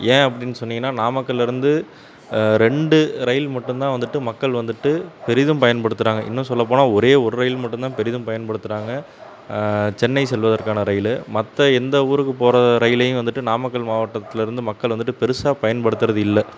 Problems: constant background noise